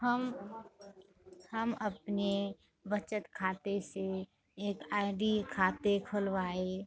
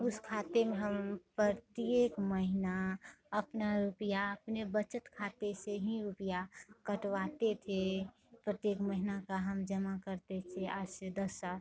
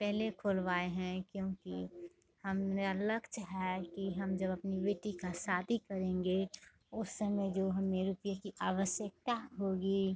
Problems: constant background noise, continuous background conversations, low volume